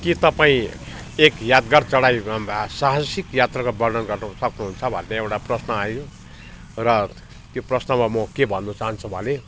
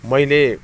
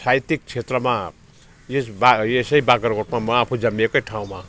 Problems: none marked